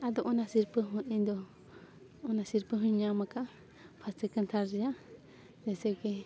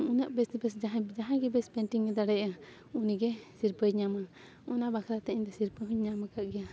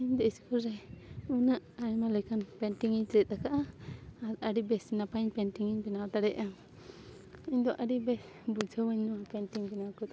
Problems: background sounds at intervals